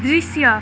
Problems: constant background noise